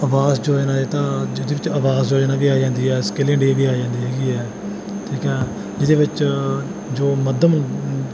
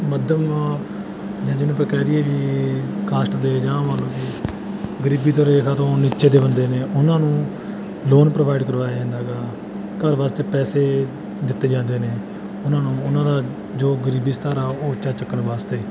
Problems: constant background noise